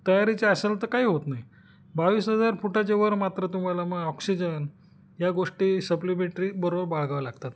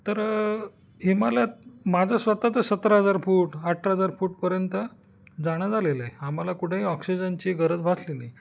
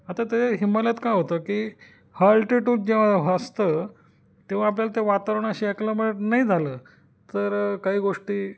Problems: none marked